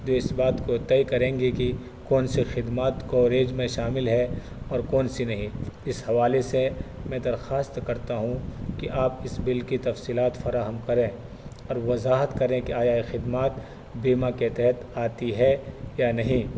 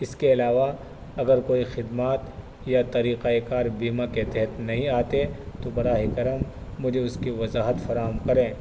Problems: constant background noise